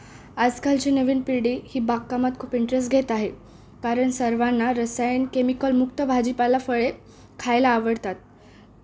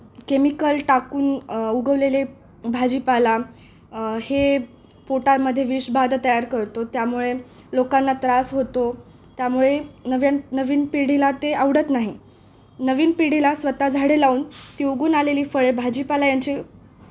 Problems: background sounds at intervals